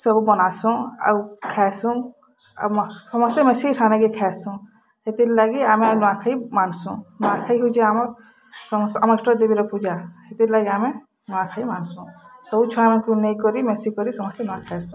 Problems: background sounds at intervals